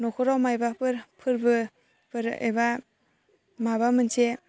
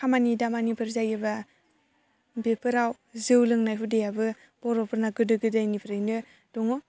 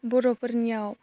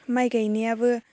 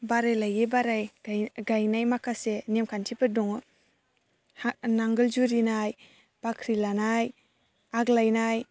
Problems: constant background noise